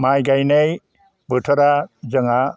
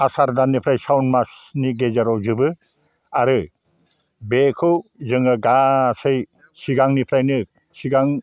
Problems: low volume